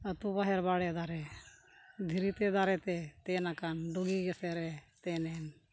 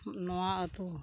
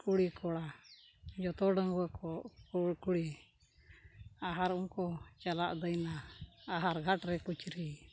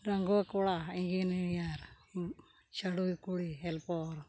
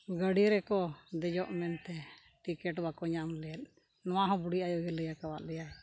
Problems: background sounds at intervals